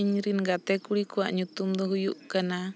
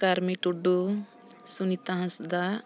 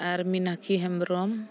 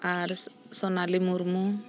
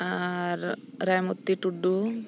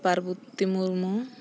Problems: constant background noise